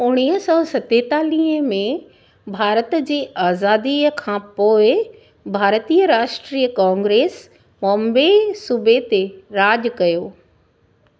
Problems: none marked